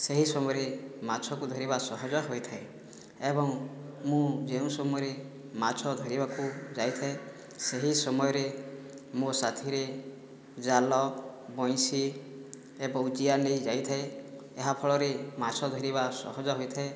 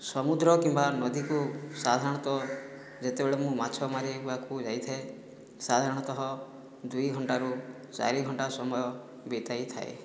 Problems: background sounds at intervals